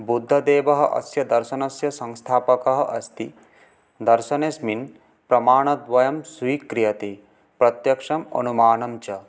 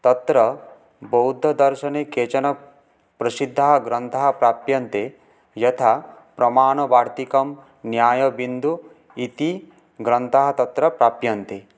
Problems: none marked